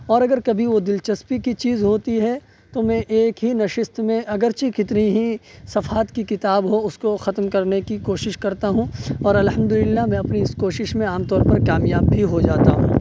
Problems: constant background noise